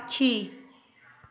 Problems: constant background noise